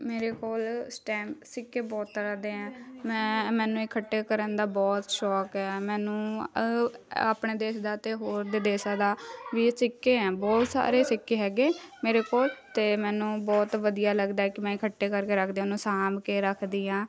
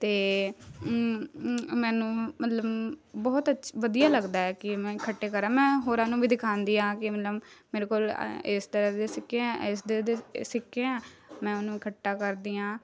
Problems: none marked